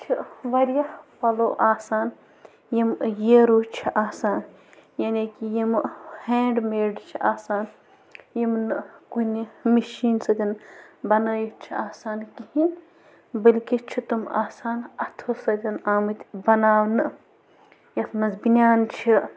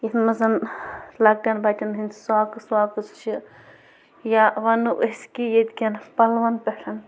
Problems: constant background noise